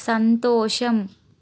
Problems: none marked